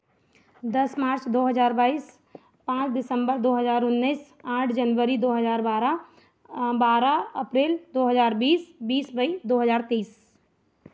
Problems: none marked